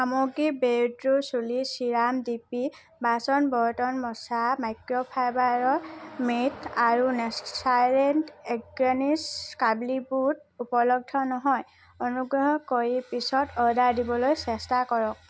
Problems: constant background noise